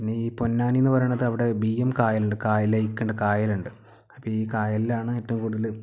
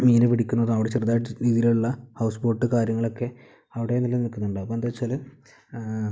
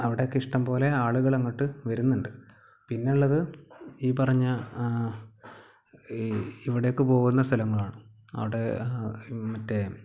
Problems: background sounds at intervals